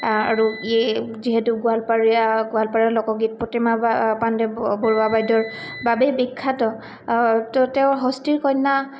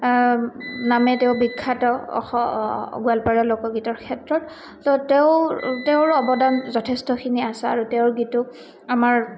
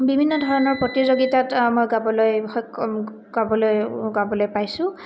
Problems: none marked